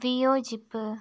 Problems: background sounds at intervals, low volume